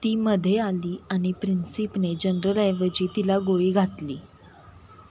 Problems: none marked